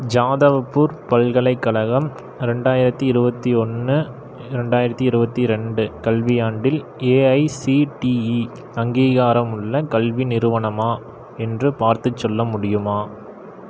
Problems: none marked